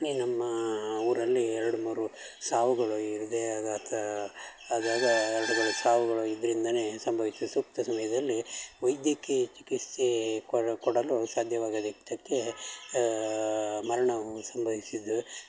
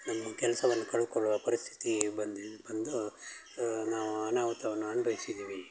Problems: background sounds at intervals